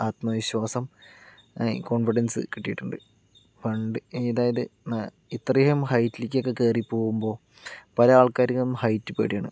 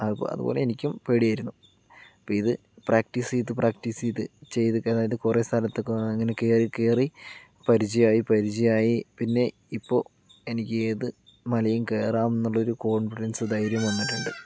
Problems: low volume